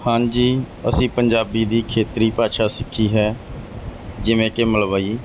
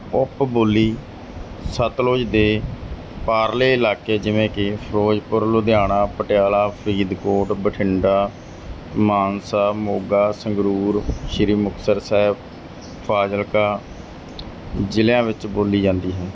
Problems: none marked